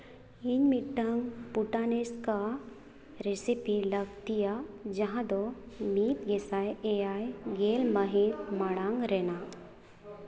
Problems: background conversations at intervals, echo